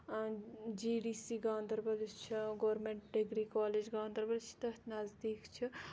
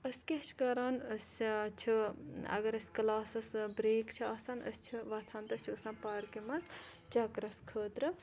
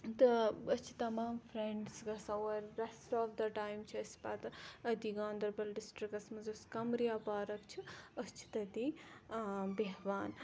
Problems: background sounds at intervals, background conversations at intervals